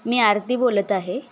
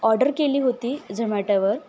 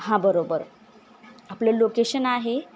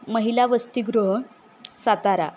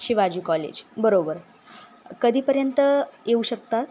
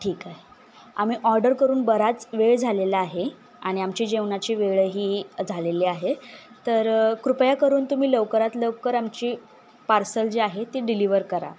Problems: constant background noise